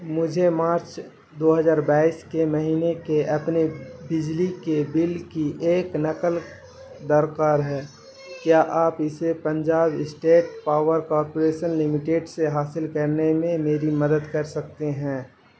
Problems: constant background noise